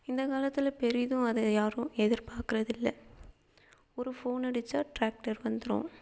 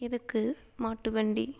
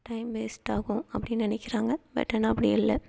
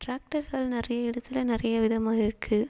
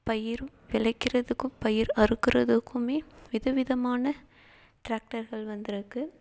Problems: constant background noise